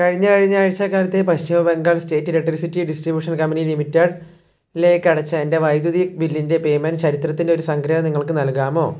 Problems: low volume